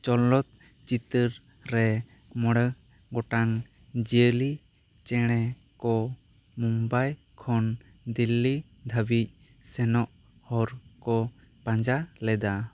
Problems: none marked